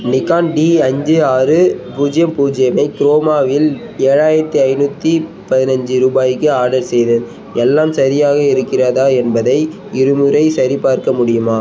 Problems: constant background noise